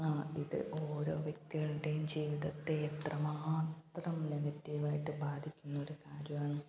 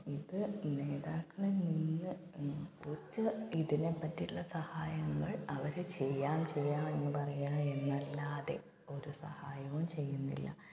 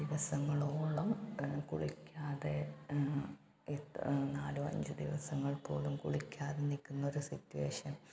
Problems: background sounds at intervals, low volume